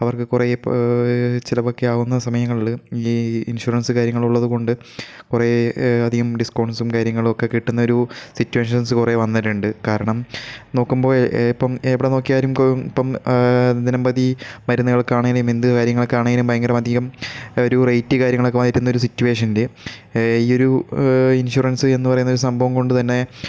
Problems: none marked